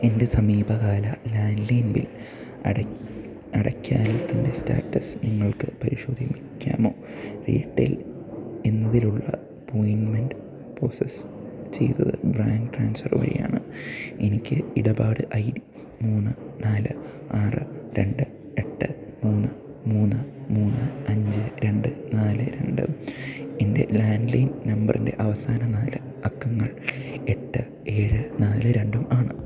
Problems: low volume